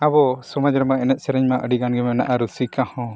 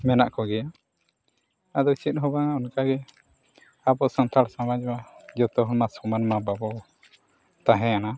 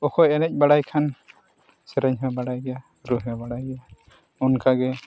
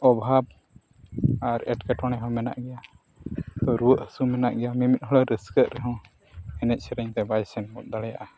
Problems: background sounds at intervals